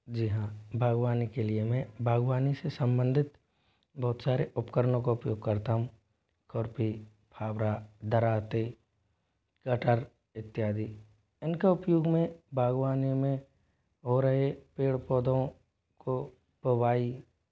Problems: constant background noise